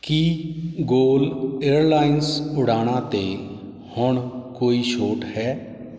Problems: none marked